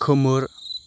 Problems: constant background noise